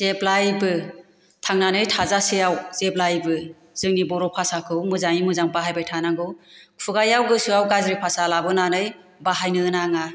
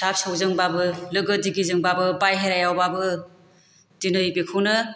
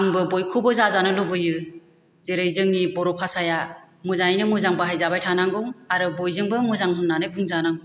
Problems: none marked